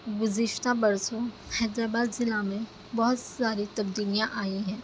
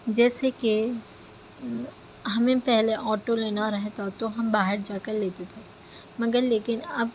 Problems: constant background noise